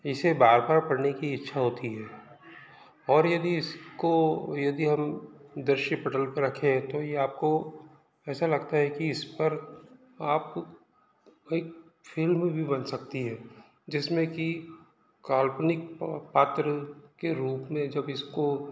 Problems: background sounds at intervals, background conversations at intervals